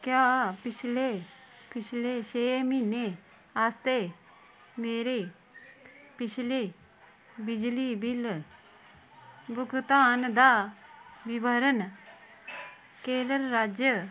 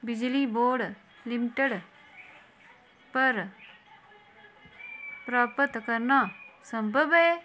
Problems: constant background noise